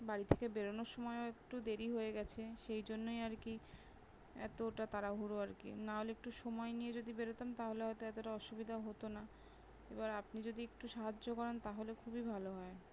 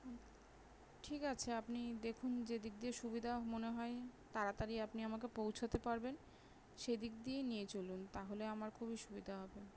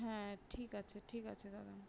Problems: none marked